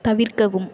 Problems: background sounds at intervals